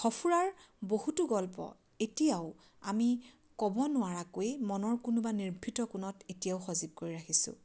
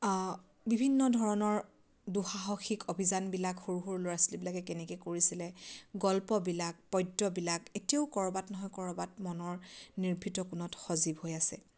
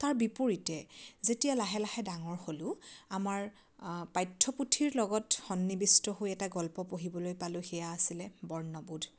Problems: none marked